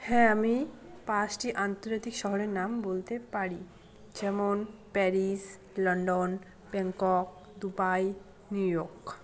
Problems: continuous background conversations